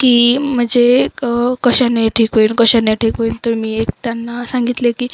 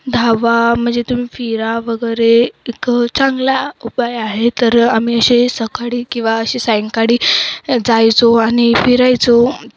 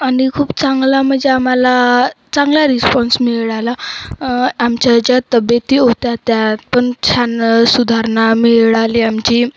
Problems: constant background noise, background conversations at intervals